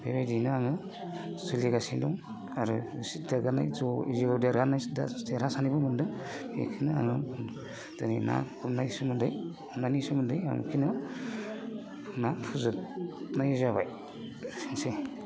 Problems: constant background noise